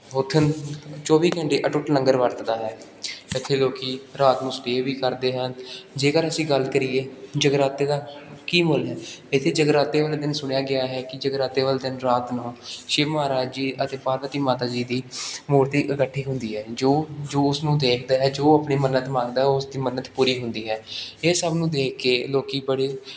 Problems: background sounds at intervals